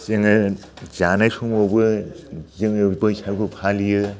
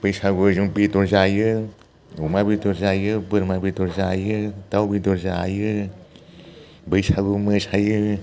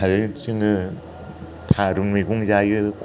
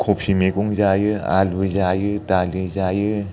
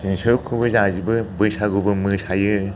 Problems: low volume